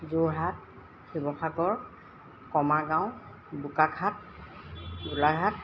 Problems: constant background noise